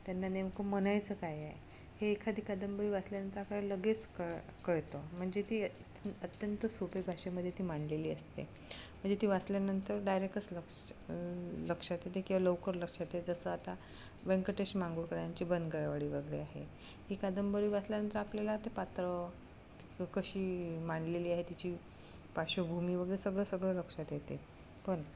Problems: none marked